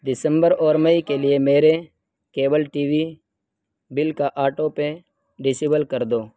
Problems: background sounds at intervals